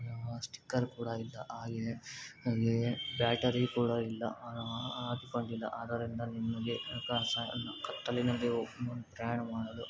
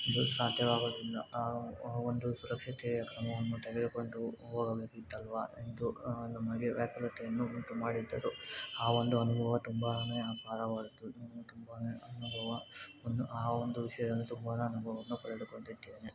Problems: constant background noise